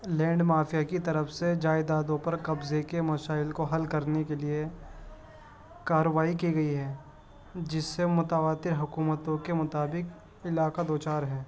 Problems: constant background noise, background conversations at intervals